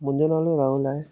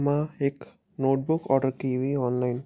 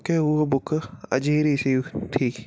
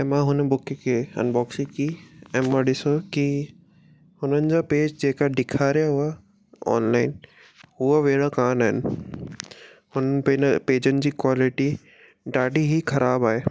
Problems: none marked